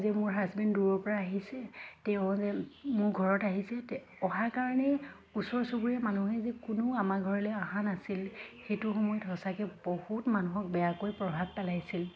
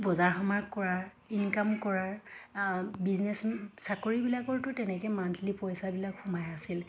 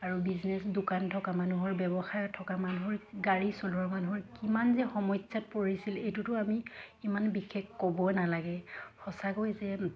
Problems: constant background noise, background conversations at intervals